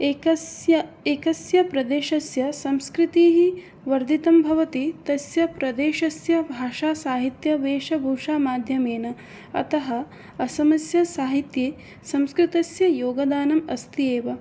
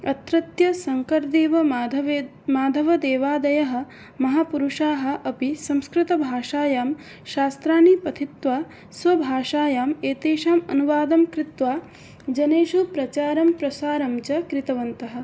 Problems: none marked